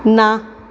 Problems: none marked